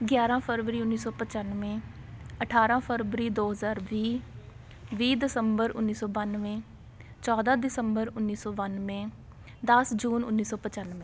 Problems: constant background noise, background conversations at intervals